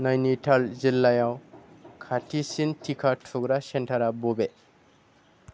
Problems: none marked